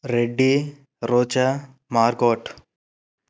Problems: none marked